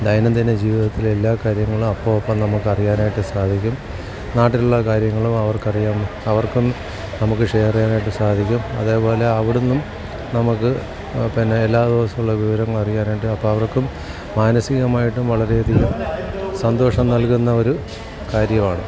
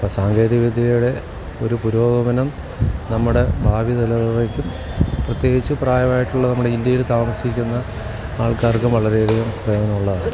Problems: constant background noise, background conversations at intervals, low volume